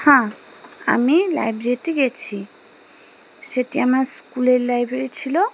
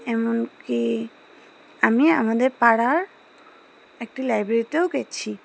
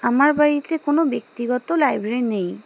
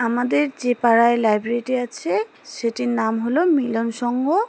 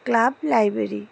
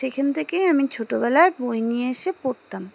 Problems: none marked